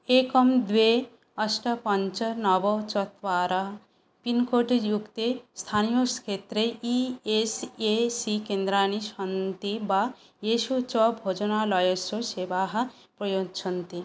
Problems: none marked